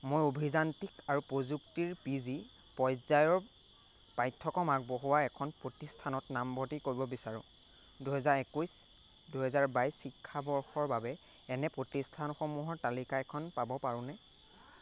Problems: constant background noise